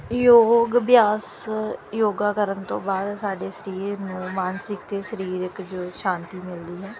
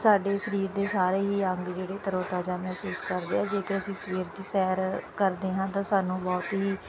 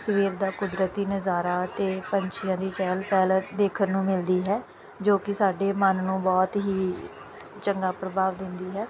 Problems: background sounds at intervals